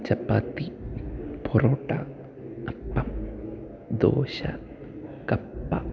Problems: background sounds at intervals